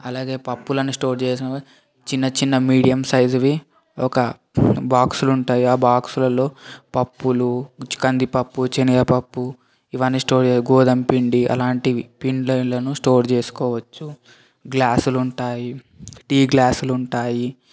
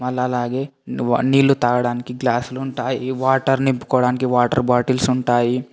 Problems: constant background noise, background conversations at intervals